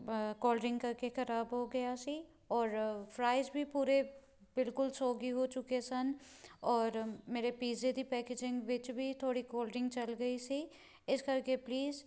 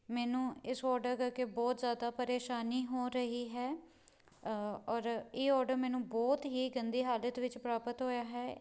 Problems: none marked